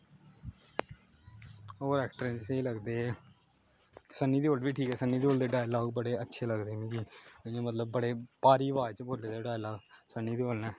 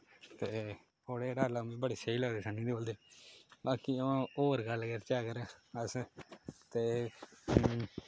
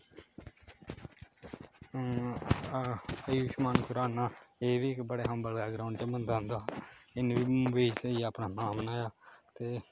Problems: constant background noise